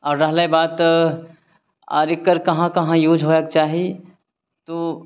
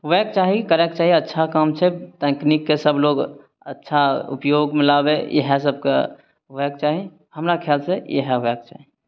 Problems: none marked